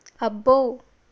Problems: none marked